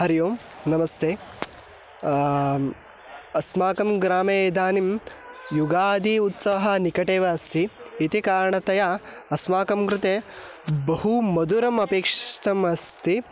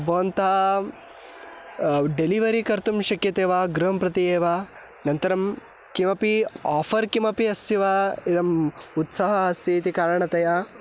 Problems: constant background noise